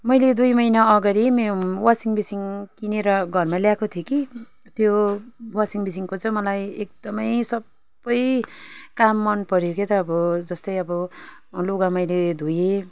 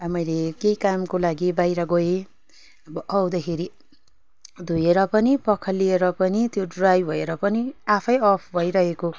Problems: background conversations at intervals